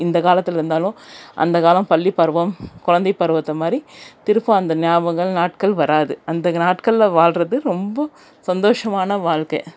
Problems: none marked